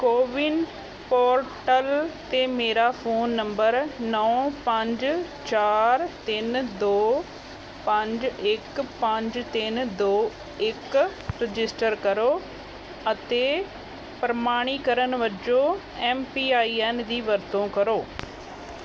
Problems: none marked